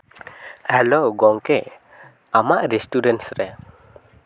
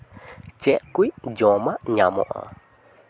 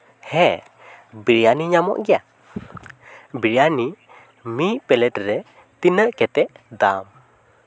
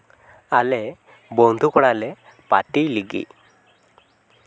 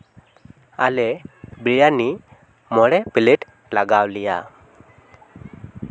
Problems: none marked